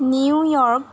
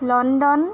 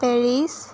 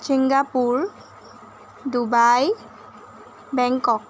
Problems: none marked